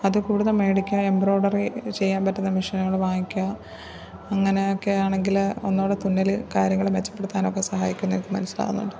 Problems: low volume